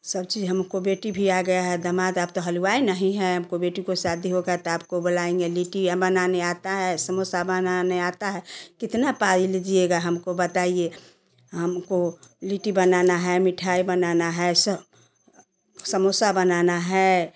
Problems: constant background noise